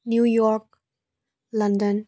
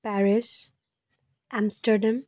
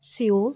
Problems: constant background noise